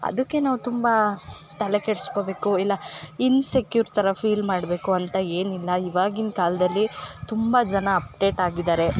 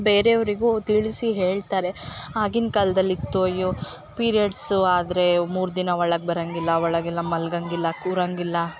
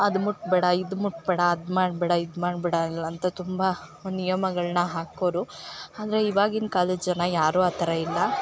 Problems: background sounds at intervals